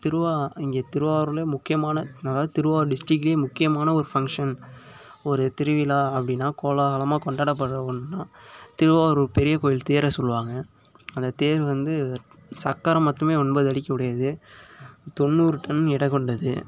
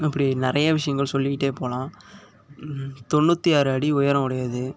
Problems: none marked